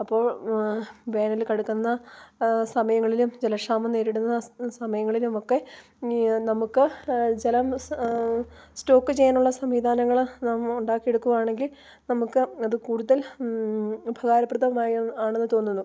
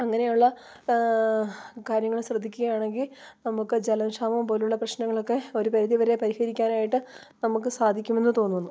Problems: none marked